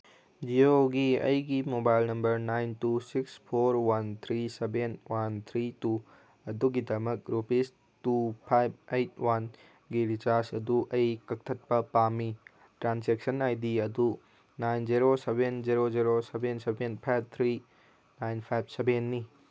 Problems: none marked